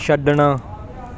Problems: background conversations at intervals